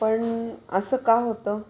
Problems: constant background noise